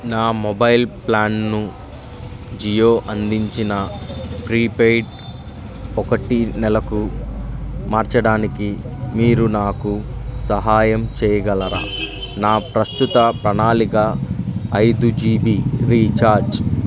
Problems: background sounds at intervals